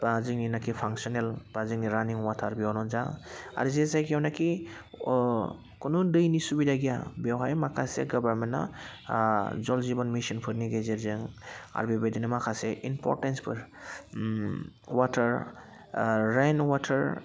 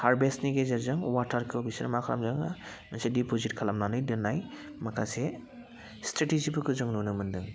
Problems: constant background noise